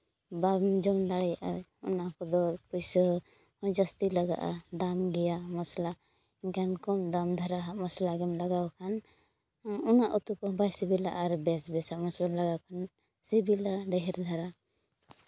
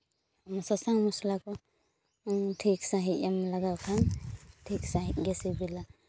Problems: none marked